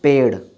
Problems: constant background noise